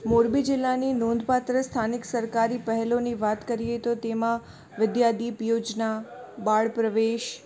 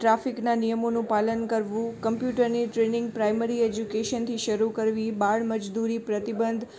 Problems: constant background noise, background conversations at intervals